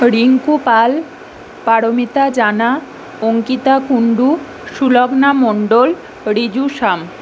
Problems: none marked